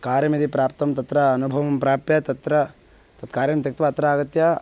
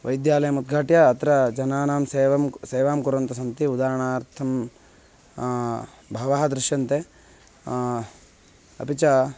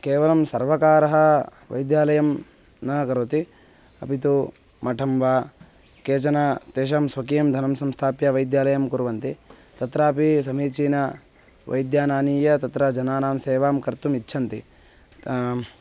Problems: constant background noise